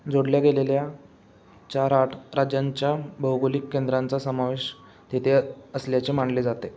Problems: constant background noise